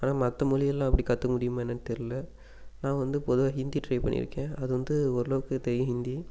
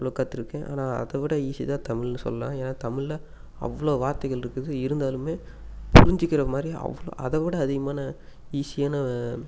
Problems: constant background noise